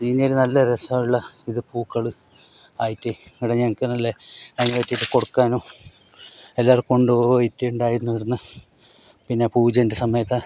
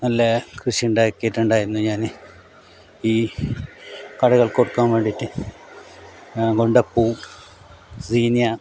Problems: background sounds at intervals